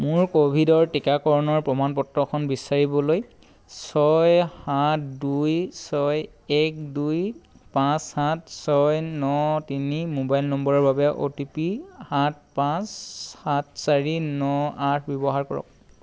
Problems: none marked